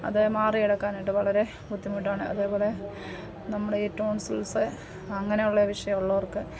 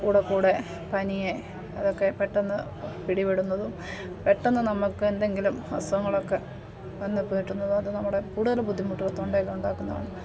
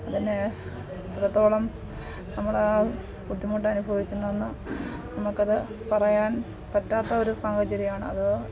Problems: none marked